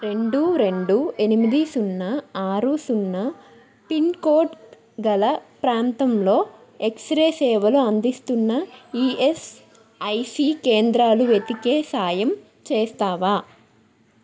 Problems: background sounds at intervals